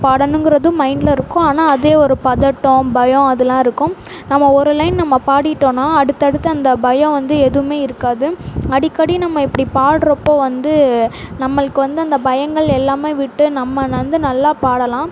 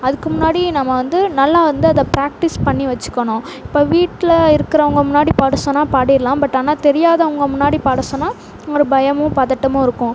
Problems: none marked